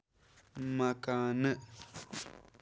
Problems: background sounds at intervals